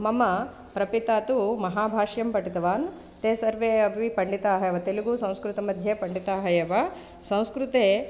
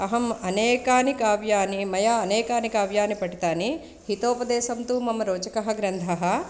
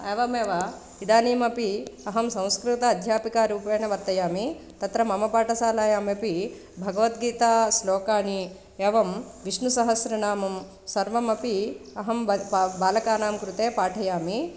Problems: constant background noise